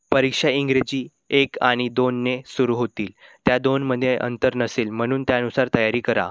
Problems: none marked